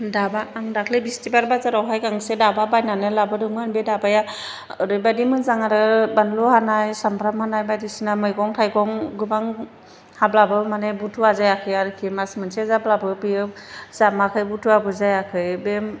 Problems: constant background noise